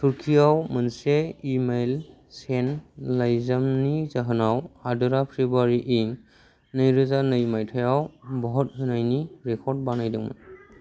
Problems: none marked